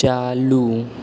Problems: constant background noise